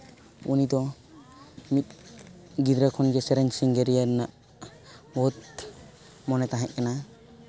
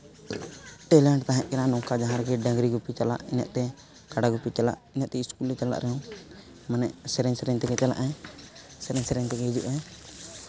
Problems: none marked